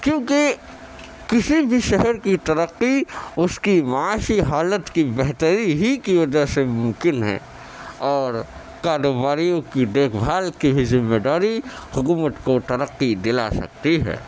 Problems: constant background noise